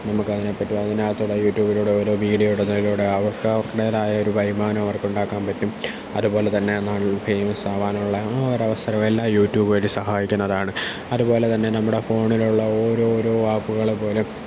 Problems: none marked